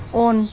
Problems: constant background noise